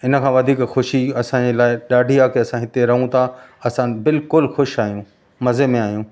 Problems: constant background noise